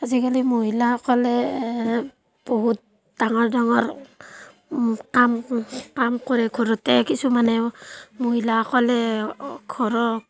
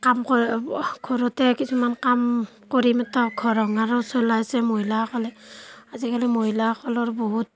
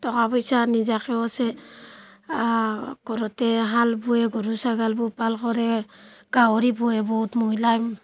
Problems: constant background noise, background conversations at intervals